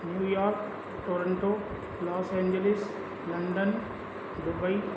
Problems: constant background noise